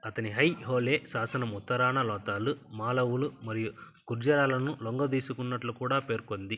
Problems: constant background noise